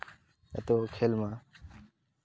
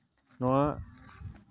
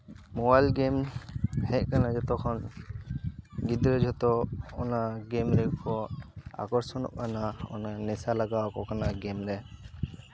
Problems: constant background noise, continuous background conversations